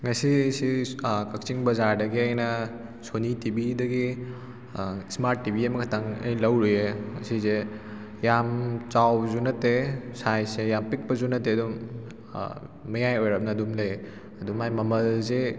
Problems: none marked